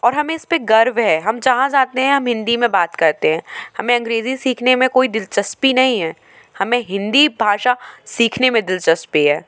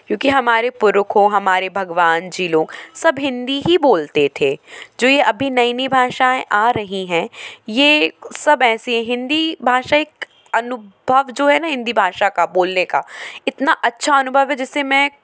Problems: constant background noise, background conversations at intervals